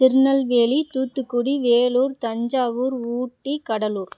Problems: background sounds at intervals